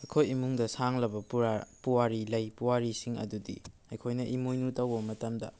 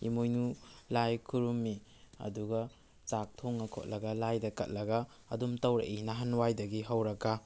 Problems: background conversations at intervals